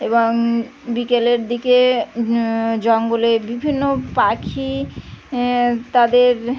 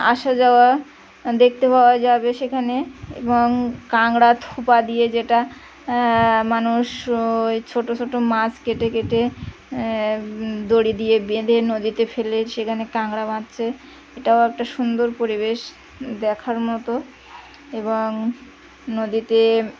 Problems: constant background noise, continuous background conversations